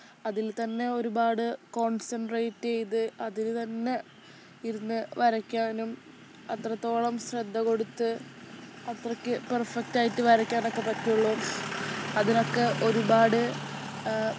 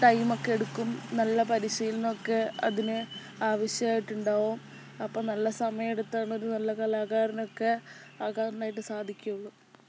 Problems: background sounds at intervals